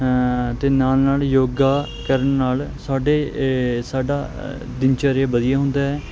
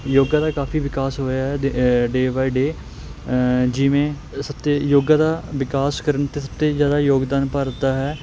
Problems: constant background noise